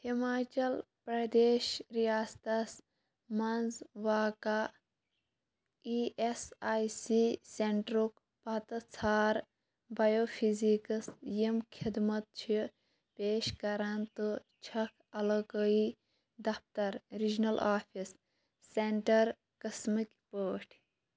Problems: none marked